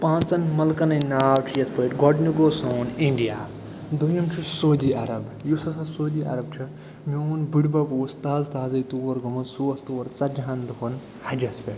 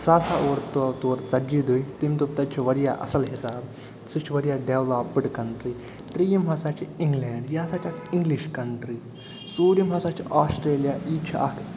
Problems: constant background noise